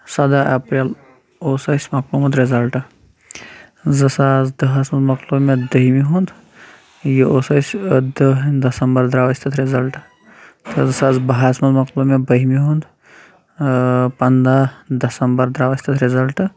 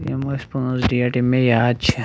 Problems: constant background noise